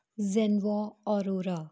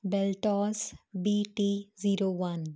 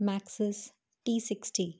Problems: constant background noise